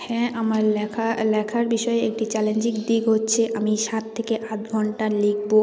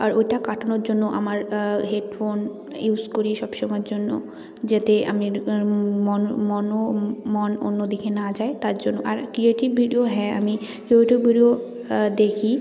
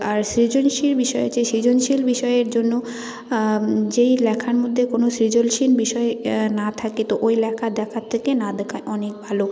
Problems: none marked